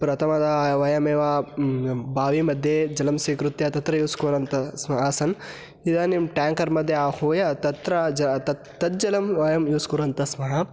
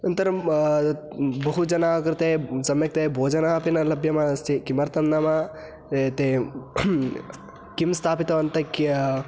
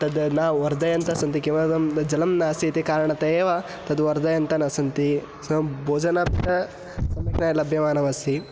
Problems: constant background noise